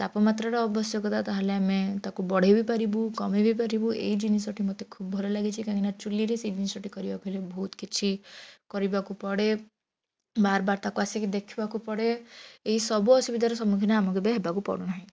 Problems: none marked